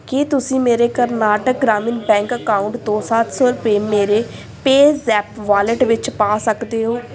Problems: none marked